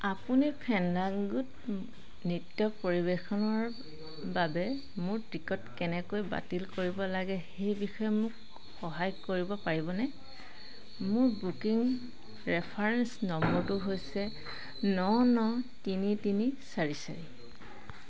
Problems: constant background noise